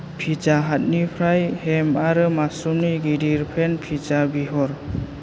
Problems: constant background noise